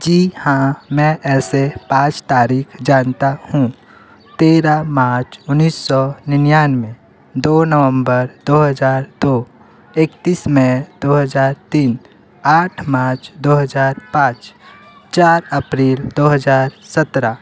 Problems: constant background noise